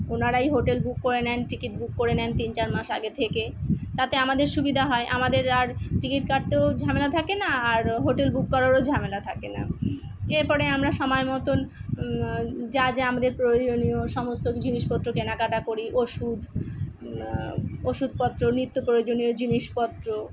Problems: background sounds at intervals